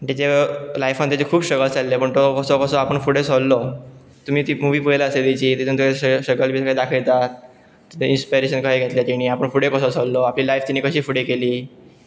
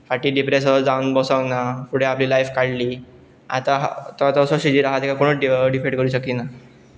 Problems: background sounds at intervals